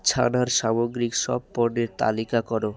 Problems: constant background noise, continuous background conversations